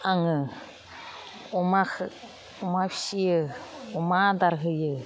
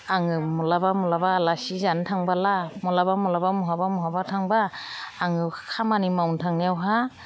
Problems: none marked